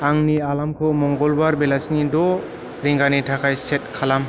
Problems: none marked